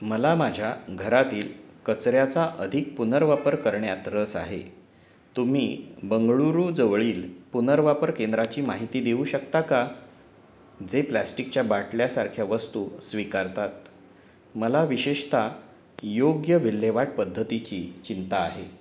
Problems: background sounds at intervals